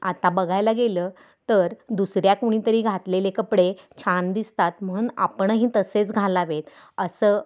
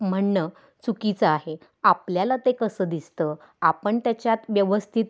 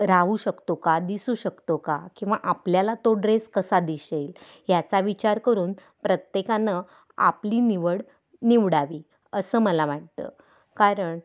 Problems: background sounds at intervals